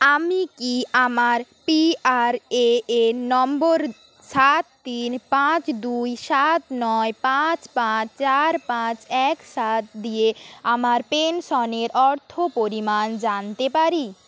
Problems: constant background noise